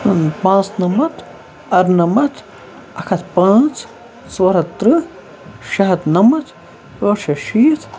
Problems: constant background noise